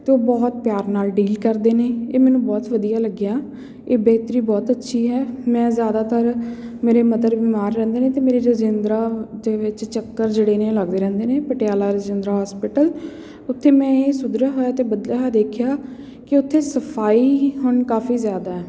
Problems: none marked